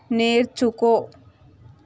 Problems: constant background noise